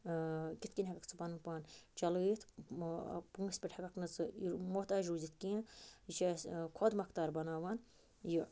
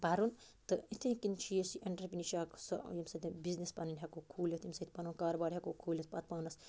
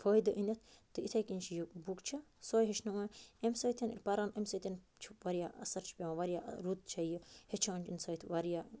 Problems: constant background noise